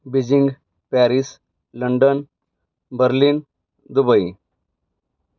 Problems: background sounds at intervals